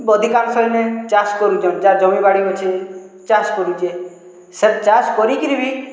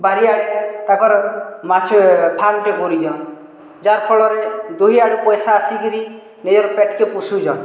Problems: none marked